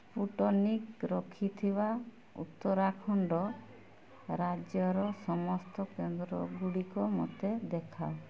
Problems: low volume